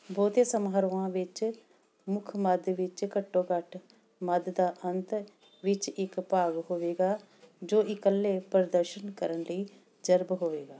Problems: background sounds at intervals